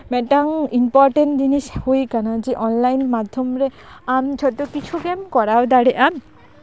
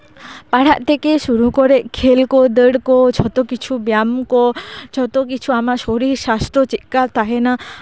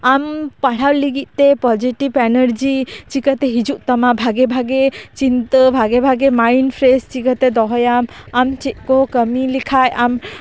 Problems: none marked